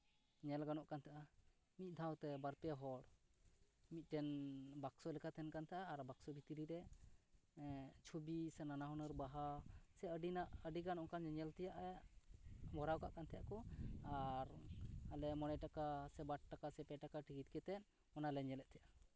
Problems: background sounds at intervals